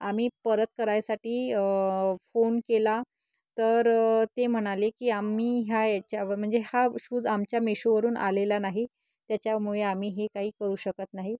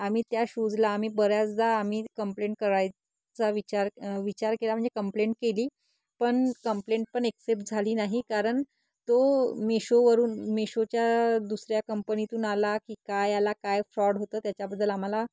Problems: background sounds at intervals